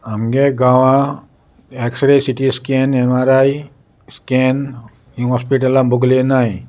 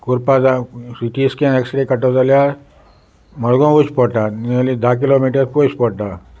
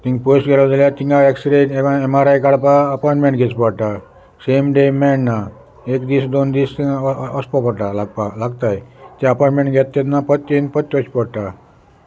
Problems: constant background noise